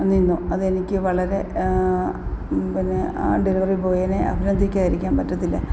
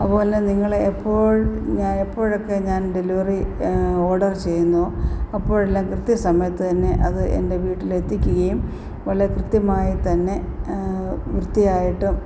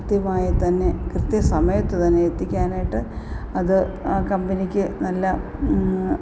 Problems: constant background noise